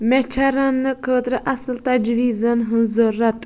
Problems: constant background noise